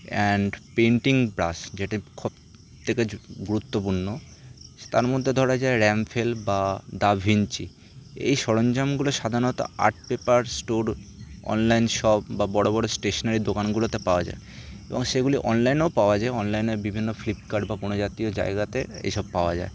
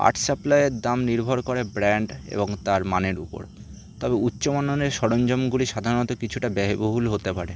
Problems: none marked